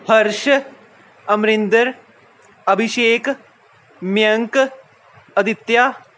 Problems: none marked